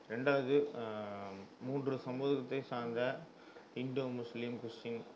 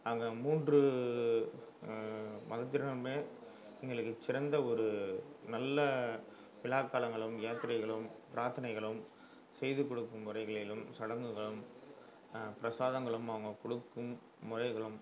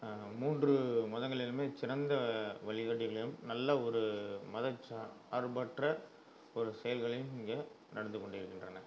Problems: low volume